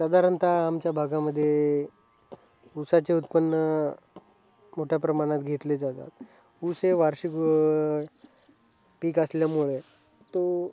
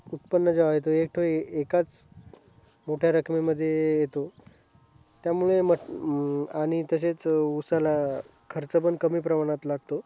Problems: background sounds at intervals